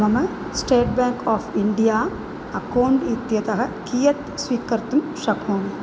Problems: none marked